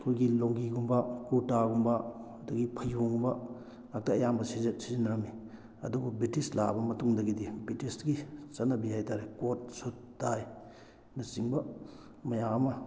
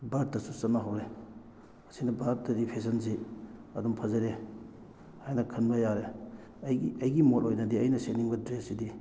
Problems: none marked